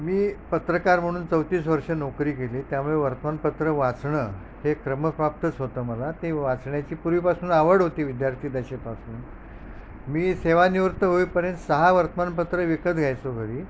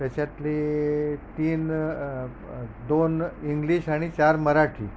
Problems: none marked